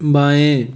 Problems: constant background noise